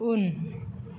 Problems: none marked